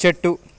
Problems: none marked